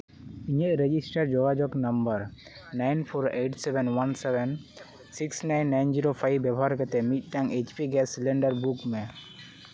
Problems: constant background noise